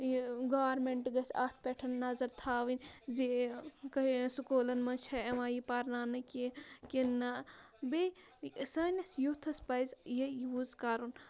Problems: none marked